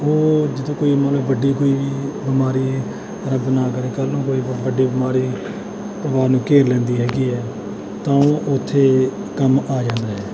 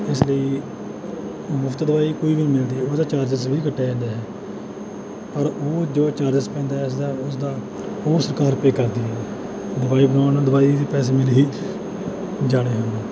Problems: background sounds at intervals